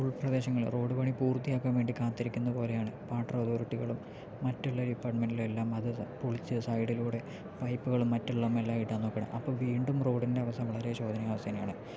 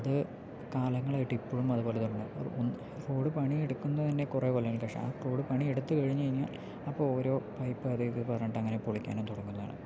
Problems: none marked